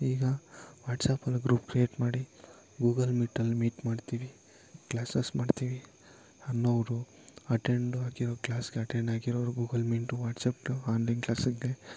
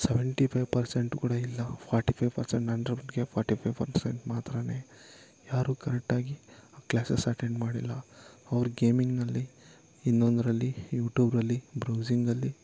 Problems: background sounds at intervals